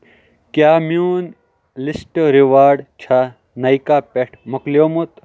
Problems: none marked